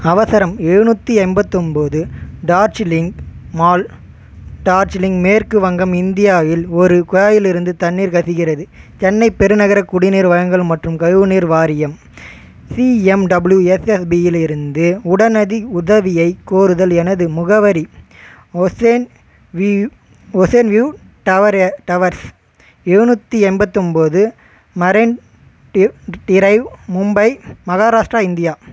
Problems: background sounds at intervals